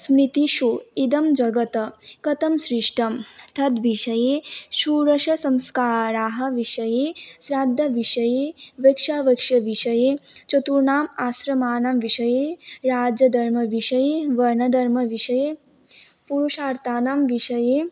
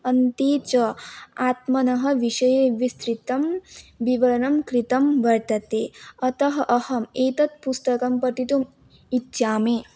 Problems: none marked